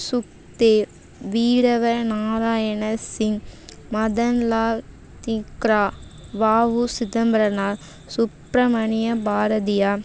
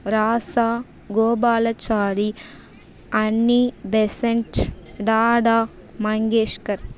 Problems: none marked